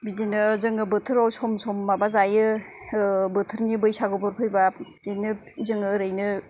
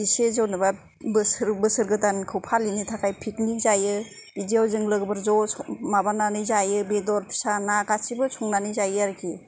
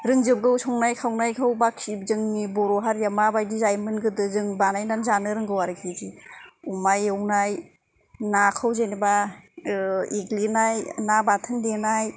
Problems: none marked